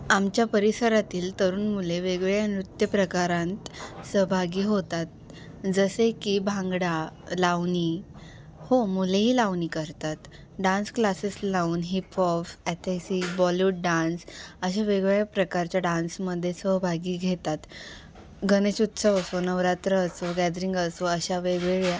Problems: constant background noise